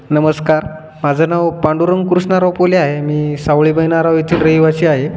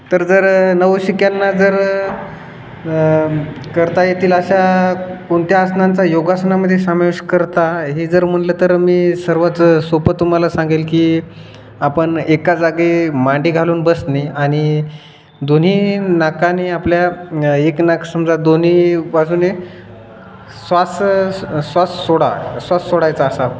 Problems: constant background noise